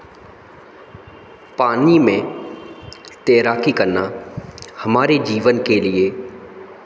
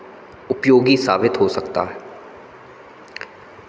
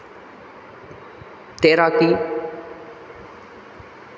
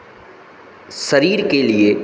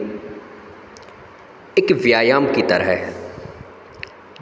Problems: constant background noise